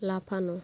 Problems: constant background noise